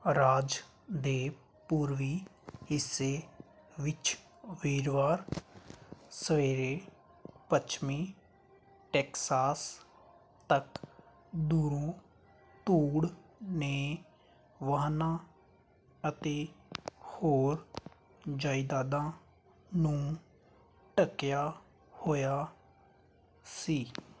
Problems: constant background noise